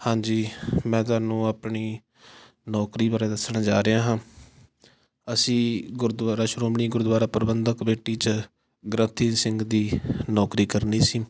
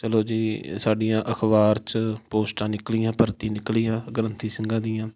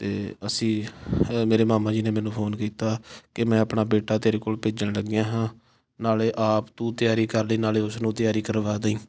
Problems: background sounds at intervals